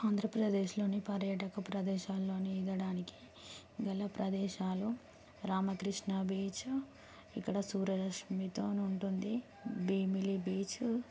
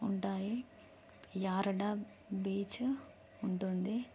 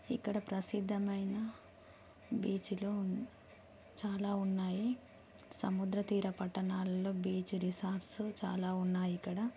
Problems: low volume